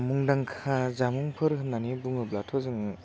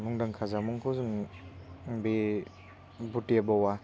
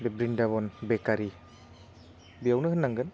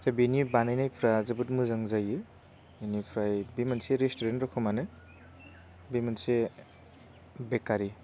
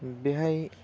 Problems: low volume